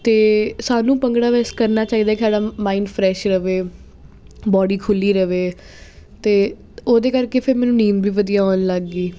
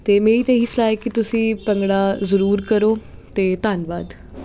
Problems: constant background noise